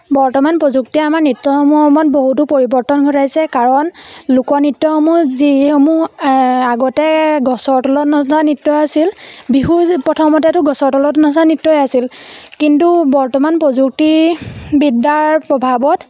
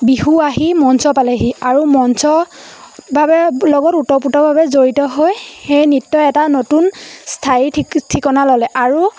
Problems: constant background noise